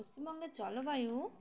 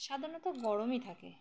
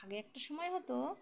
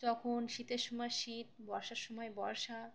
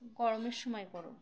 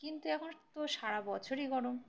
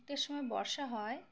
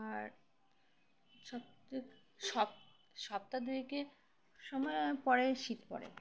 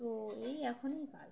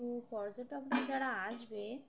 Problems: background sounds at intervals, background conversations at intervals